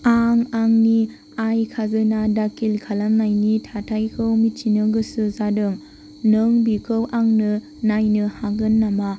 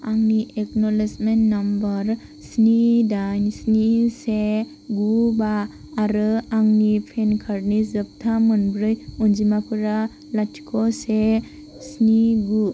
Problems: constant background noise